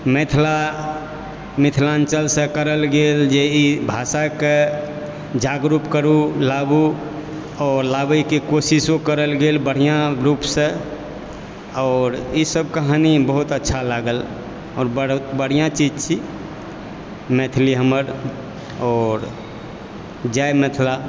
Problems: background sounds at intervals